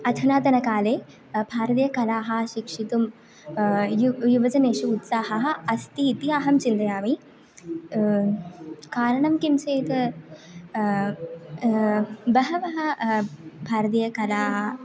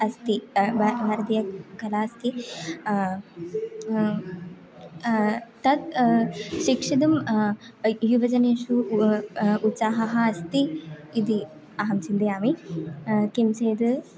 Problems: background conversations at intervals